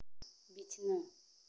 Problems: low volume